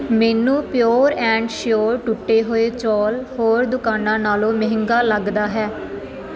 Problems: none marked